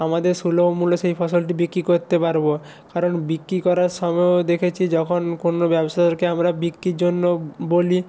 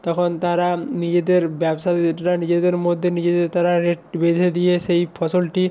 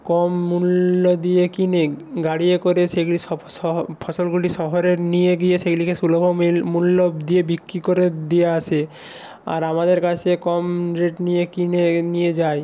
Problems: none marked